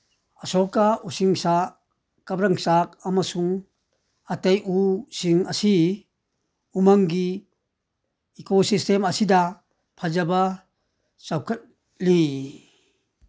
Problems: none marked